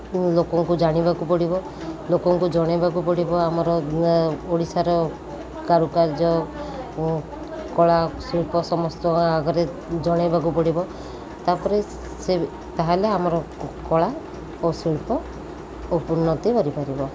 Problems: constant background noise, continuous background conversations